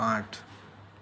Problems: background sounds at intervals, low volume